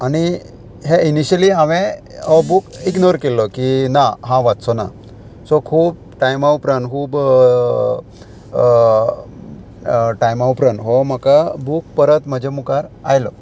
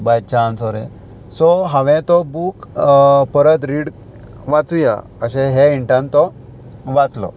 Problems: constant background noise